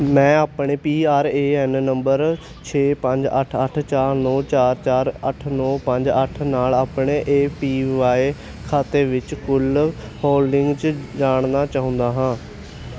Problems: none marked